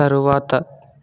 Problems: constant background noise